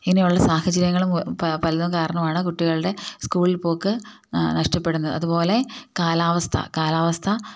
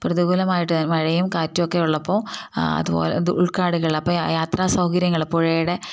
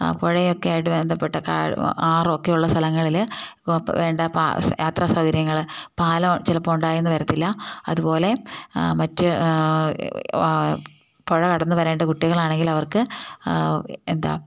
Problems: none marked